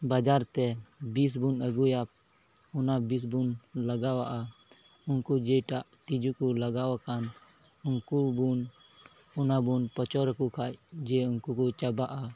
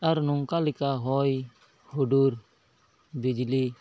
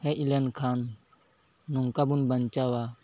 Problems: none marked